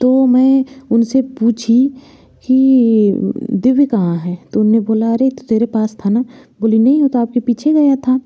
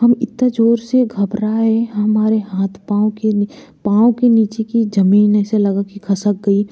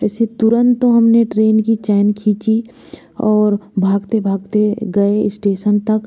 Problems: background sounds at intervals